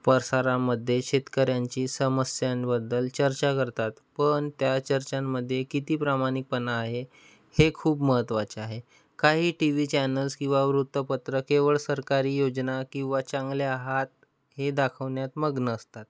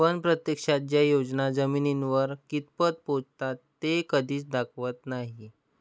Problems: background sounds at intervals